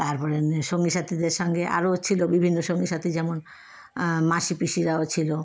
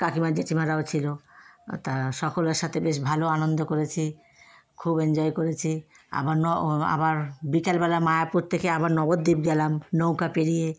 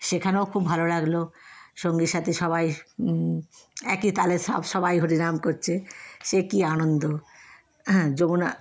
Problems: constant background noise, background conversations at intervals